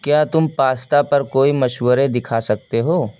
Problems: constant background noise